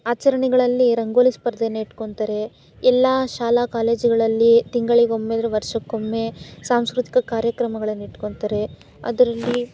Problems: background sounds at intervals